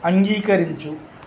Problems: constant background noise